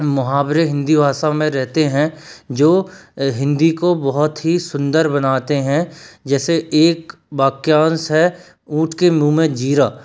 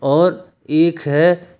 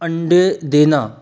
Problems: constant background noise